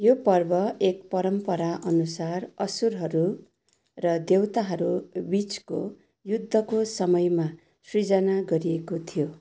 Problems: none marked